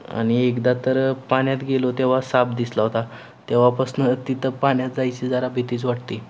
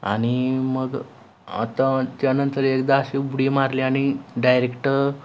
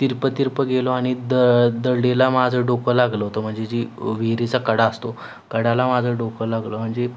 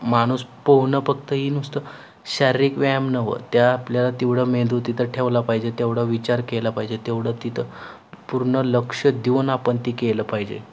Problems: none marked